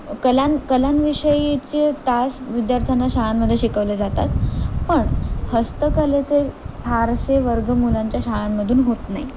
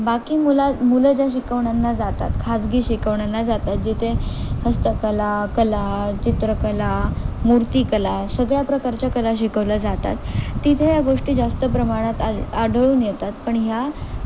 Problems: constant background noise